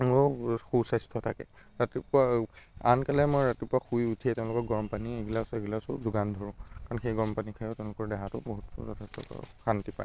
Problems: constant background noise